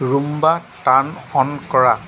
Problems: constant background noise